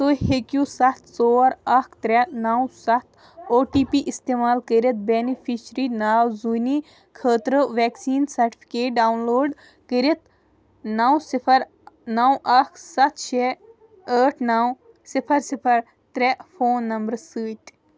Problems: continuous background conversations